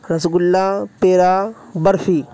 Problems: constant background noise